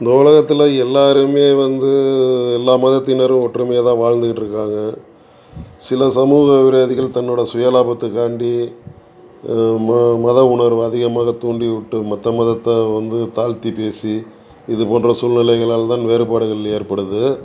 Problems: background conversations at intervals